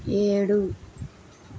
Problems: none marked